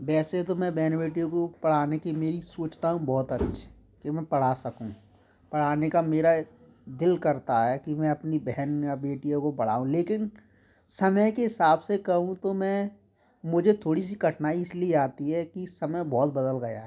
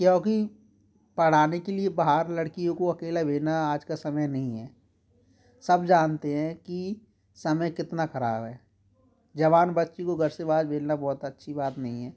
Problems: background sounds at intervals, background conversations at intervals